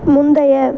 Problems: constant background noise